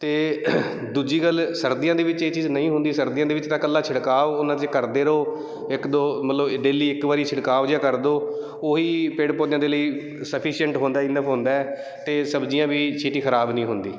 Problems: none marked